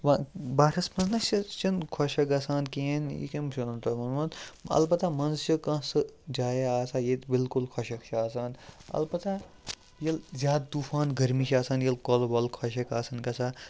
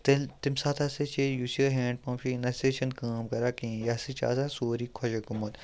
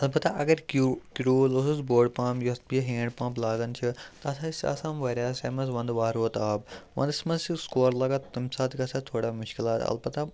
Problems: background sounds at intervals, background conversations at intervals